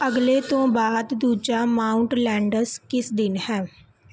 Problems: background sounds at intervals